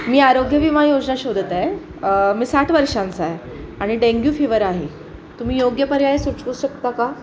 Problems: constant background noise, background conversations at intervals